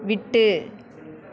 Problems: continuous background conversations